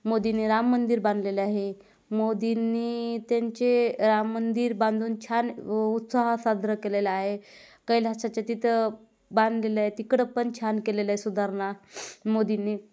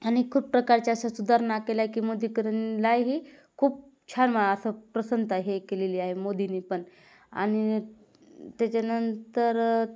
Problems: none marked